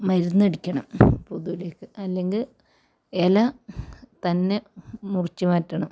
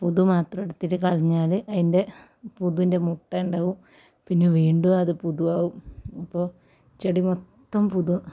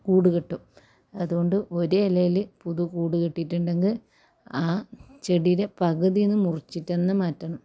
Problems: none marked